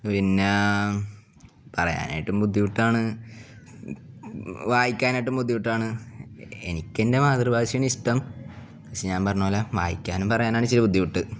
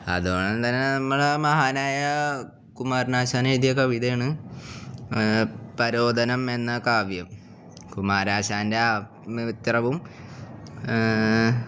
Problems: none marked